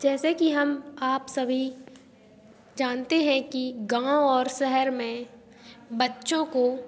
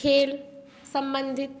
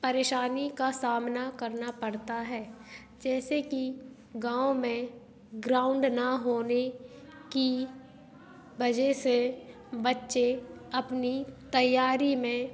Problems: constant background noise